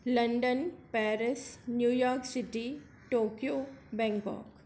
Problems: none marked